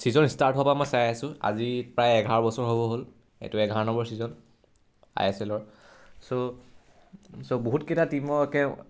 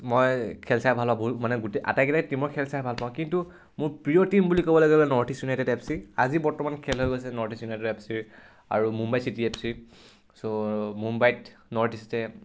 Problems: none marked